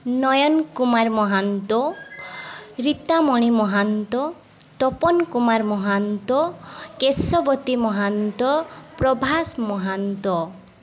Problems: constant background noise